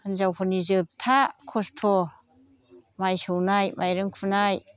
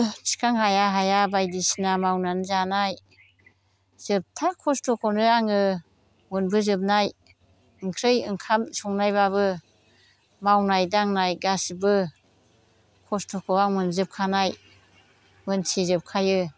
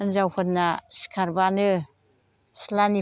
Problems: constant background noise